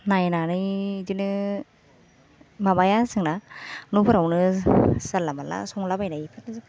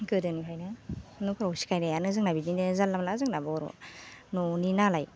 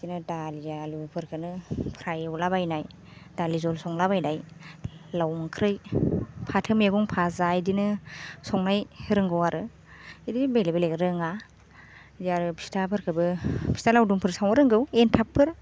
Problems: none marked